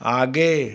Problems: none marked